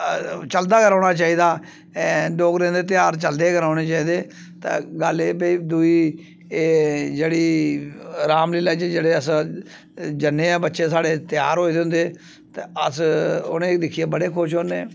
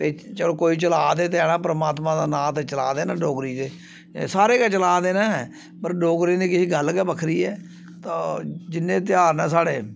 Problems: none marked